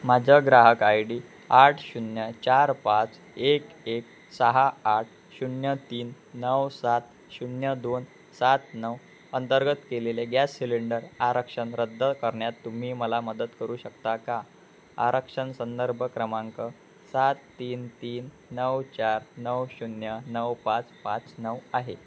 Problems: none marked